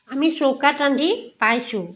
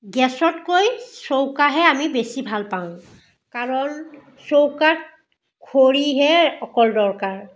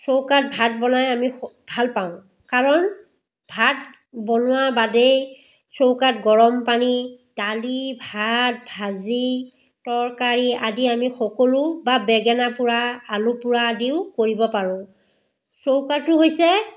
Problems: background sounds at intervals, background conversations at intervals